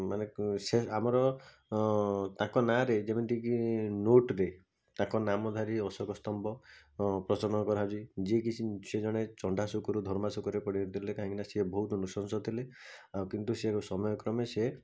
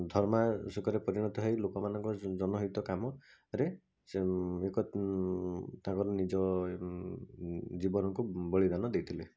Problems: constant background noise